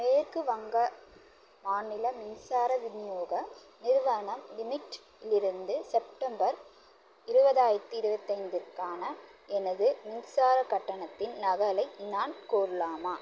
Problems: constant background noise